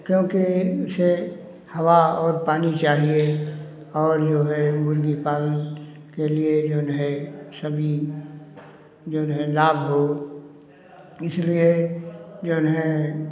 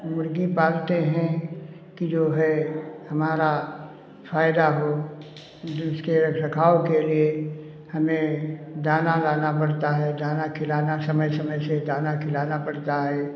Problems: none marked